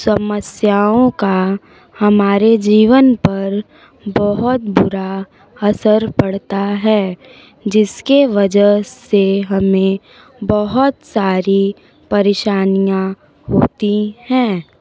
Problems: constant background noise